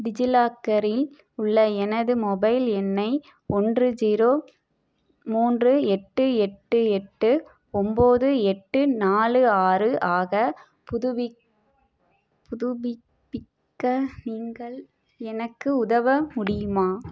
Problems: background sounds at intervals, low volume